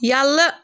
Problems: none marked